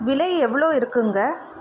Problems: constant background noise